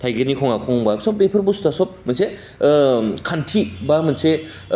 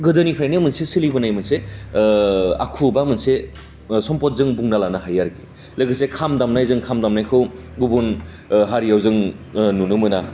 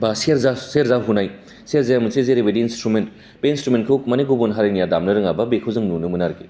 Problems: constant background noise